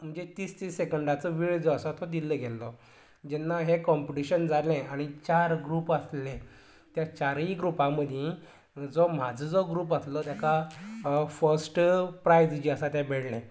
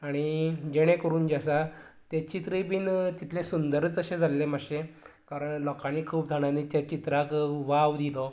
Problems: none marked